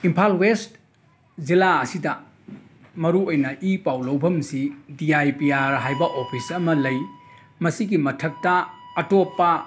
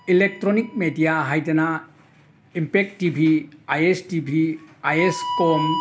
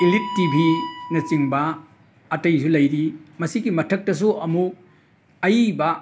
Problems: background sounds at intervals